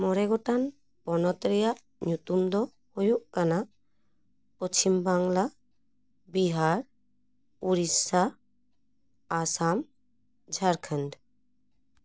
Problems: none marked